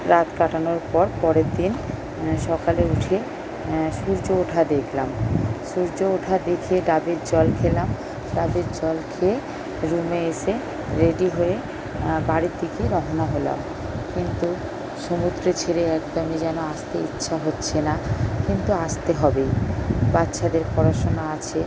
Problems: constant background noise